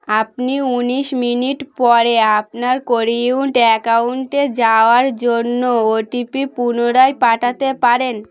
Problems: none marked